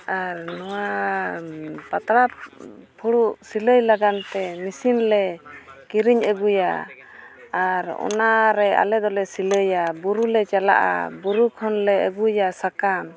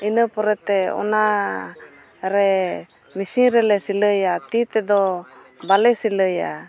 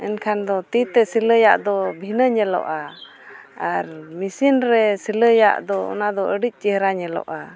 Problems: constant background noise, continuous background conversations